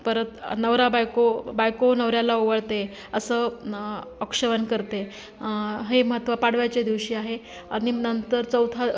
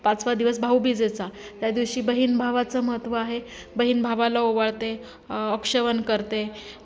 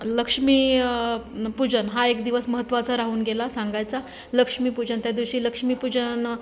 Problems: none marked